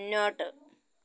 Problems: low volume